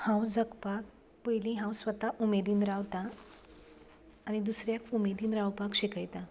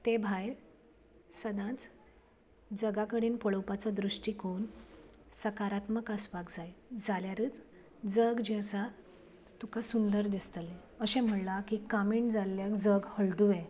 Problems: background sounds at intervals